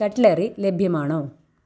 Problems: background sounds at intervals